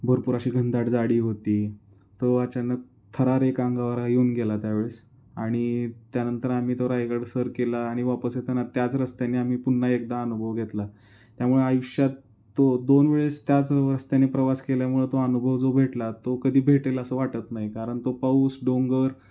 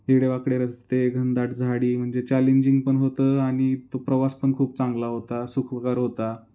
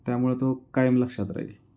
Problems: constant background noise